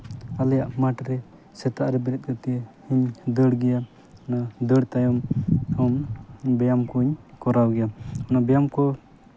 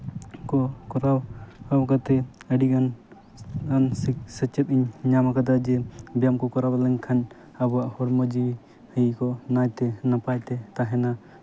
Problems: none marked